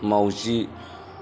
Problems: background sounds at intervals